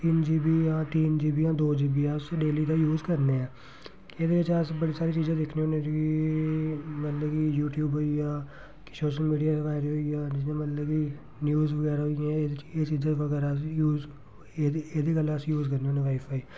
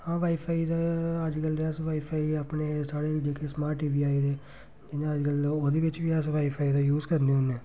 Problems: none marked